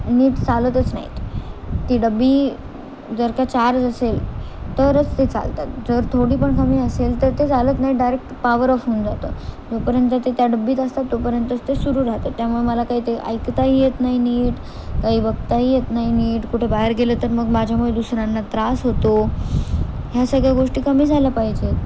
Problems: constant background noise